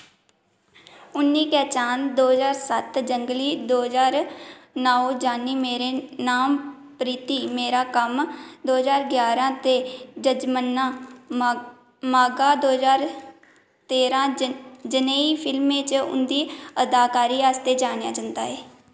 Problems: echo